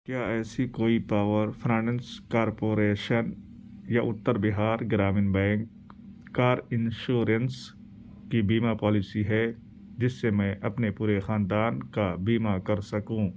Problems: none marked